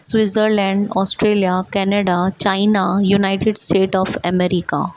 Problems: constant background noise